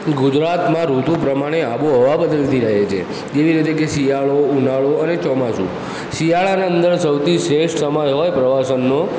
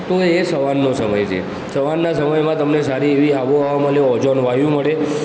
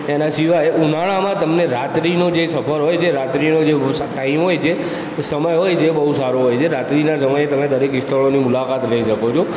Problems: constant background noise, background conversations at intervals